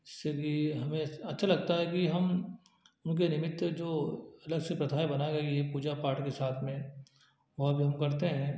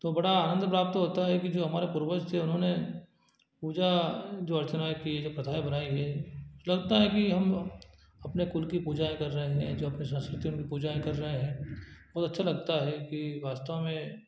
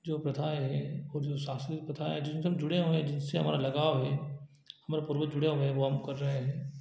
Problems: low volume